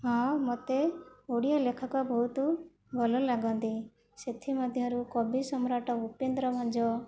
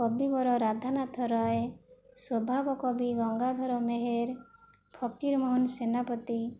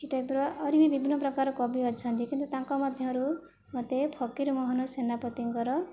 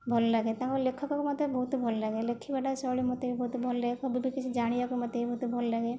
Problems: low volume